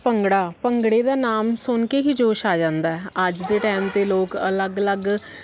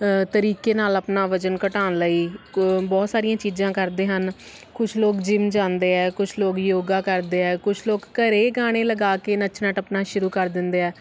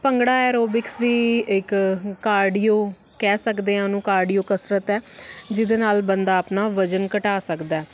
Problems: none marked